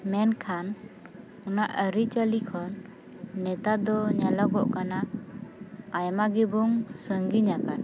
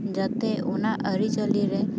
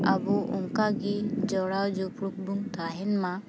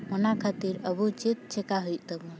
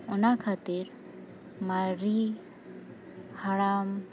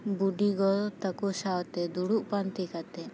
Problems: constant background noise, background conversations at intervals